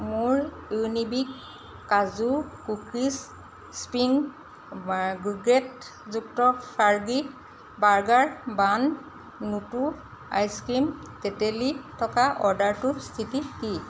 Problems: constant background noise